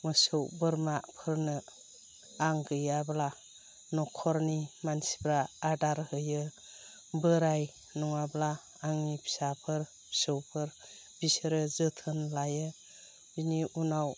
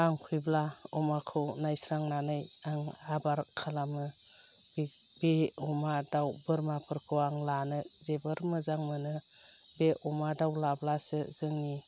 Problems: constant background noise